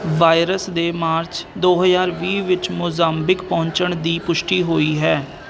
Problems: constant background noise